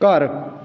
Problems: none marked